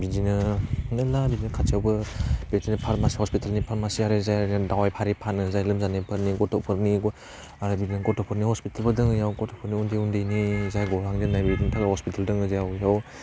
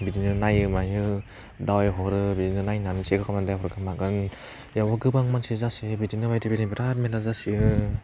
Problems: low volume